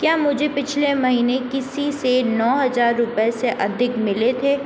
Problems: constant background noise